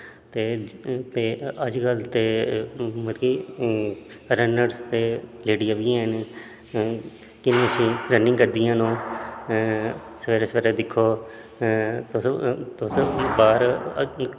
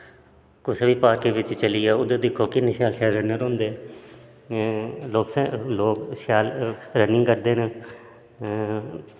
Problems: background sounds at intervals, echo